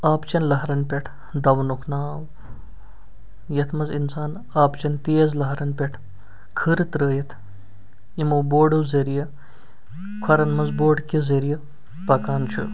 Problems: background sounds at intervals